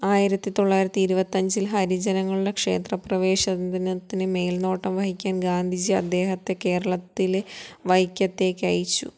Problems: none marked